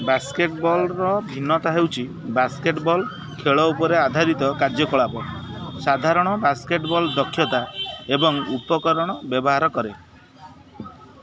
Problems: constant background noise